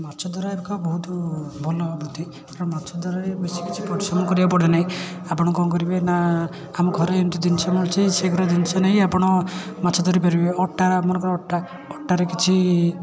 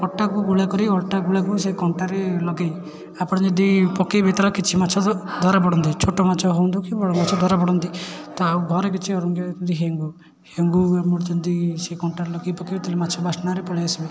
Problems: constant background noise, continuous background conversations